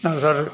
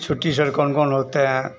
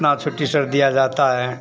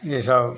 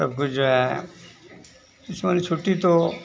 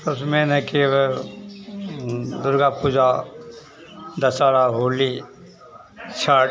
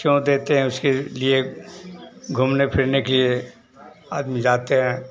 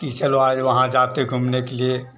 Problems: constant background noise